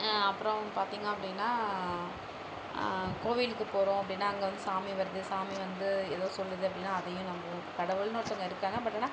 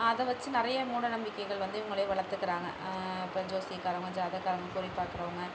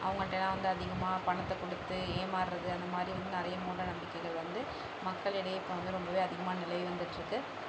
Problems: none marked